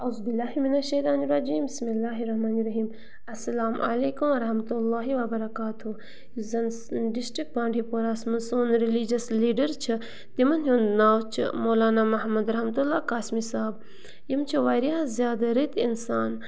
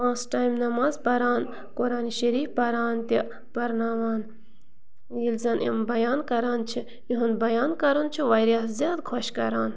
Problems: constant background noise